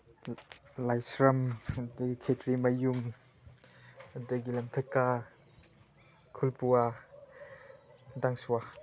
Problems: none marked